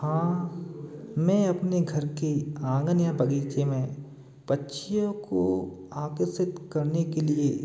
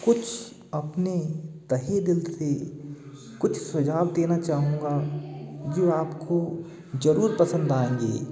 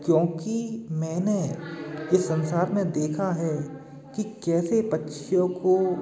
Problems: constant background noise